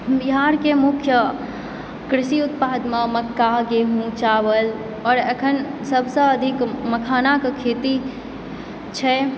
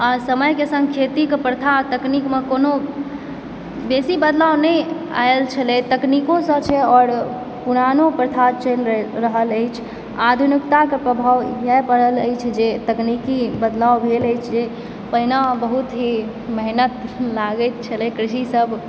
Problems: background sounds at intervals